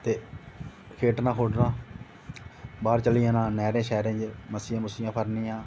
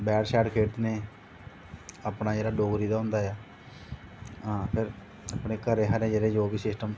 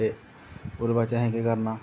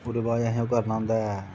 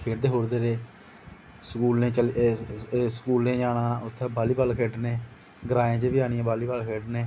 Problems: constant background noise